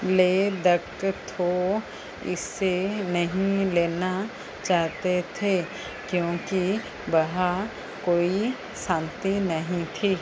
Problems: constant background noise